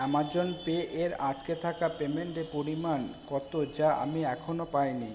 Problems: background sounds at intervals